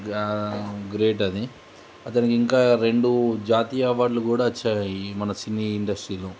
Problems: constant background noise